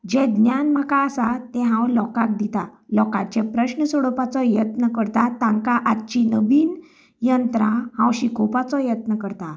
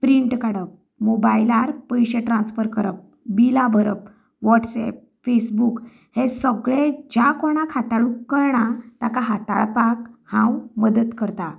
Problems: background conversations at intervals